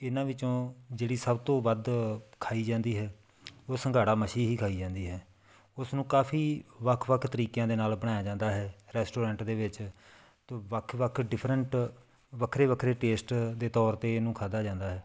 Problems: background sounds at intervals